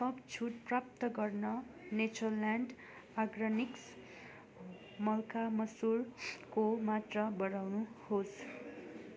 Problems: constant background noise, continuous background conversations